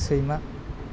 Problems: constant background noise